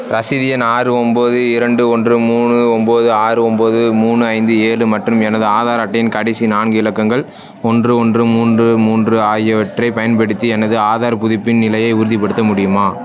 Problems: constant background noise